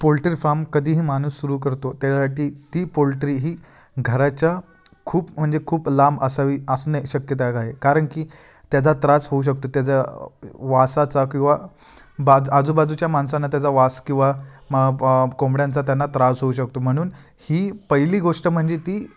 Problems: constant background noise, background conversations at intervals